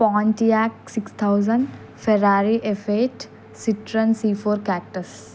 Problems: constant background noise